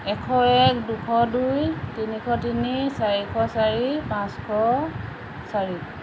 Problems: constant background noise